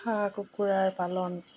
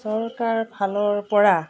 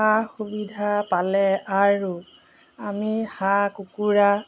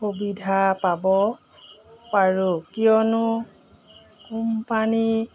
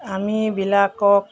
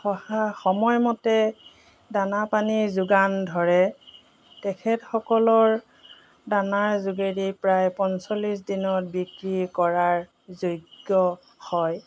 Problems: background sounds at intervals